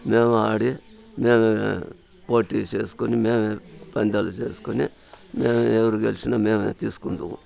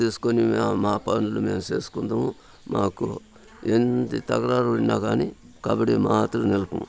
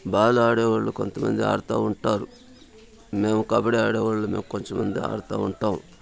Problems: constant background noise, continuous background conversations